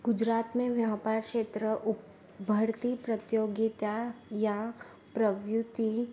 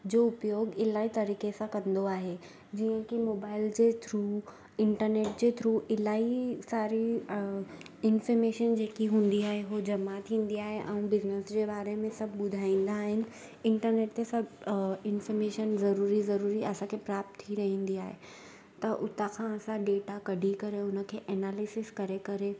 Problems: constant background noise